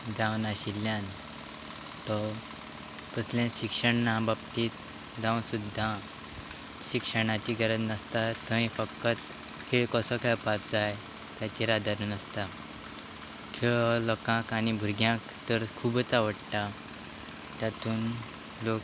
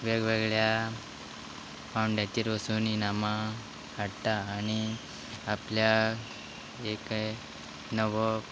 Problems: constant background noise